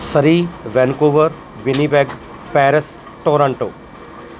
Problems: none marked